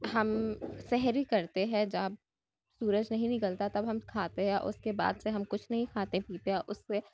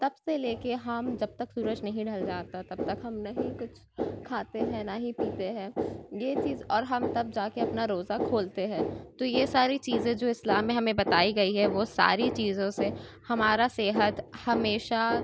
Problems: background sounds at intervals, background conversations at intervals